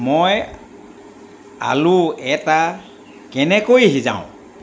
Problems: constant background noise